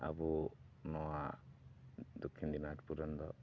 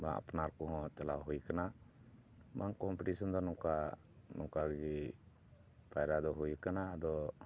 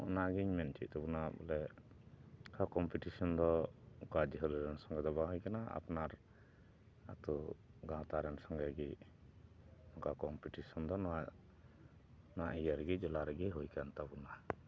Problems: background sounds at intervals, low volume